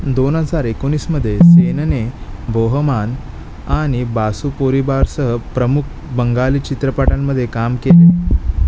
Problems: constant background noise, background conversations at intervals